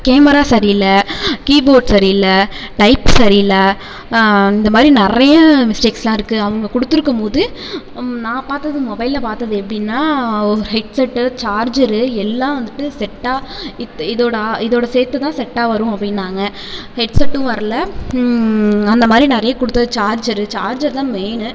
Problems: constant background noise